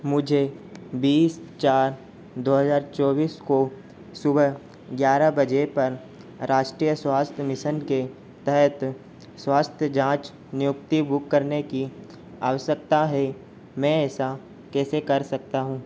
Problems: constant background noise